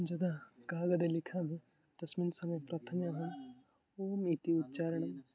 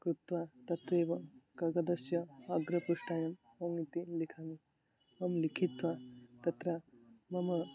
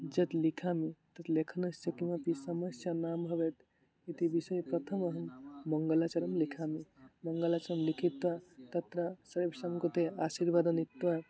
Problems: background conversations at intervals